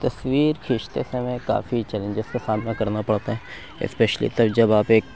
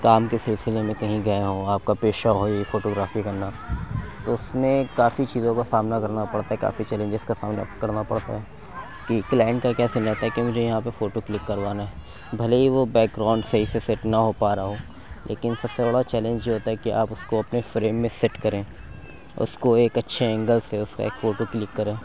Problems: constant background noise